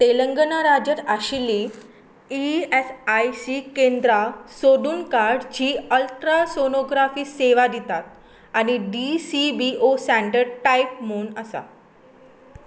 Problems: background sounds at intervals